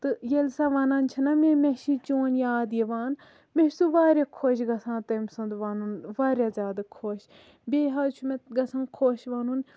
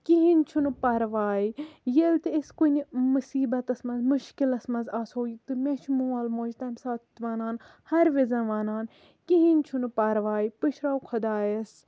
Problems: low volume